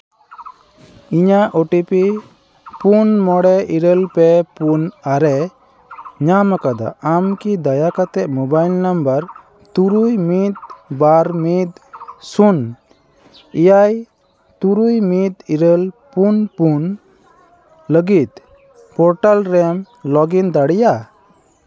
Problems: background sounds at intervals, background conversations at intervals